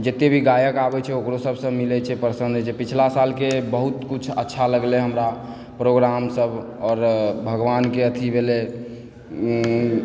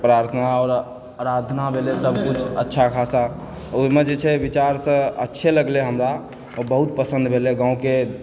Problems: background sounds at intervals, background conversations at intervals